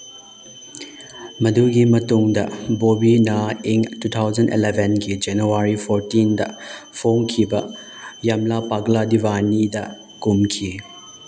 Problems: background sounds at intervals